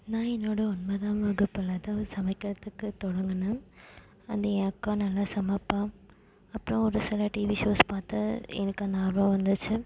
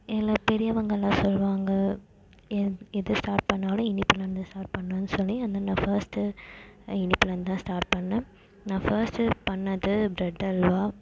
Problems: constant background noise